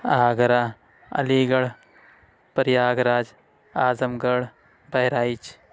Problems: background sounds at intervals